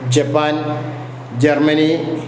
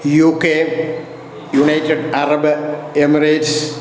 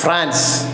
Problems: constant background noise